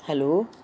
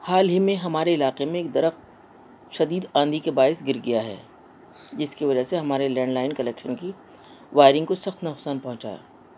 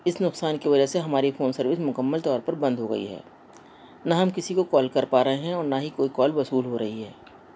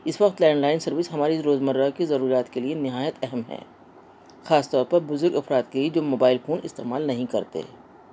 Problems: constant background noise